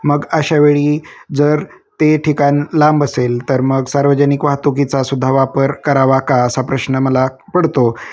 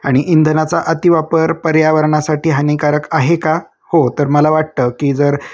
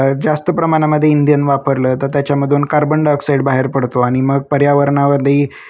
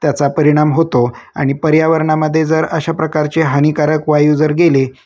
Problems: background sounds at intervals